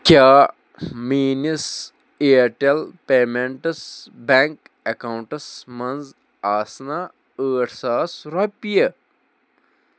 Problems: none marked